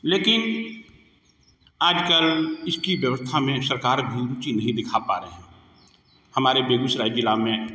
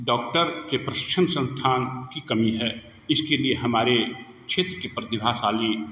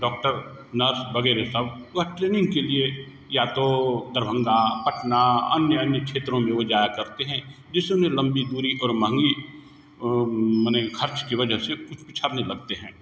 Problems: constant background noise, echo